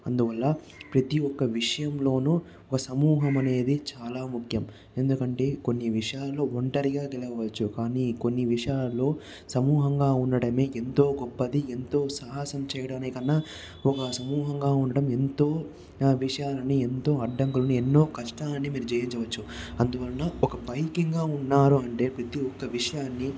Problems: background sounds at intervals